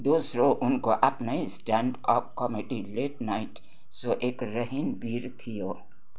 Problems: constant background noise